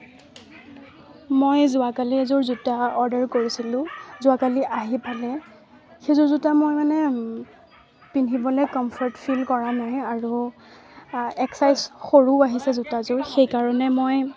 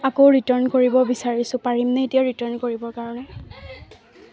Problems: none marked